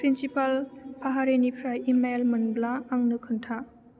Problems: low volume